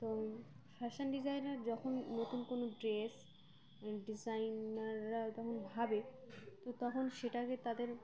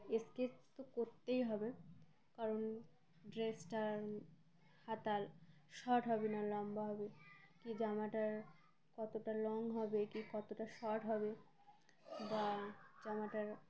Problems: constant background noise, continuous background conversations